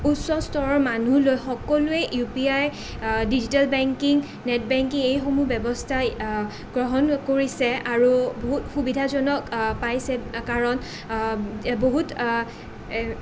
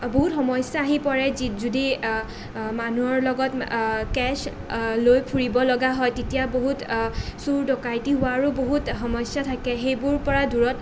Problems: none marked